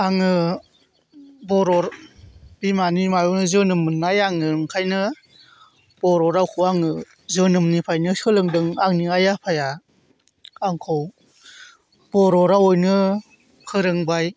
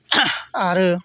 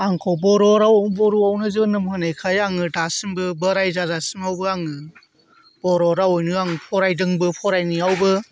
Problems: none marked